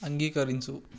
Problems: none marked